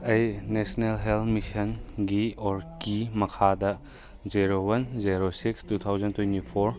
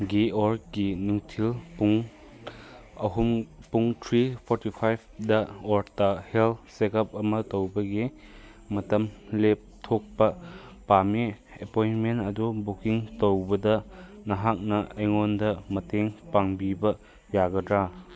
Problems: background conversations at intervals